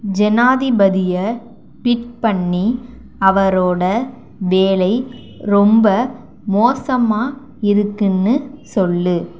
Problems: none marked